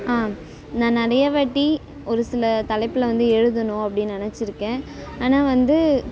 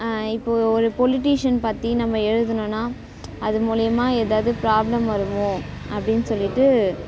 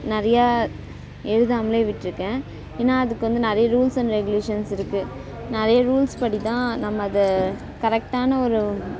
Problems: background sounds at intervals